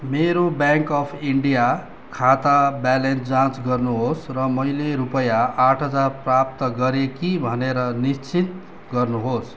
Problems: constant background noise